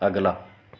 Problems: none marked